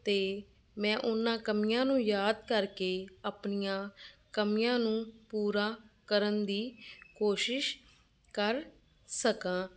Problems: none marked